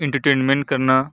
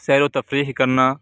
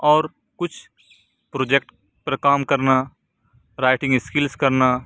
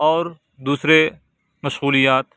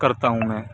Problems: none marked